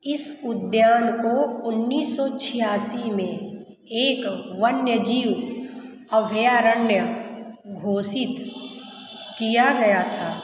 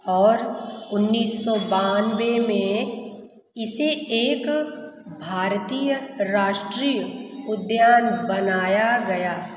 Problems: background sounds at intervals